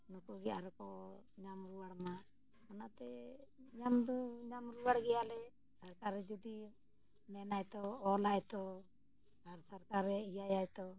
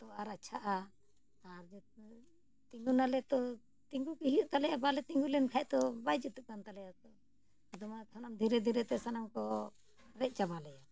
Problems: none marked